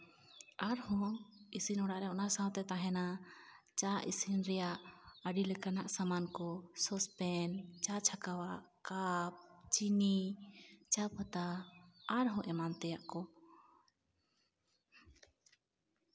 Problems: none marked